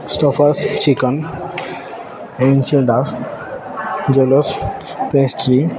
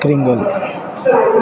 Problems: none marked